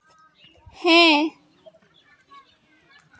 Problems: continuous background conversations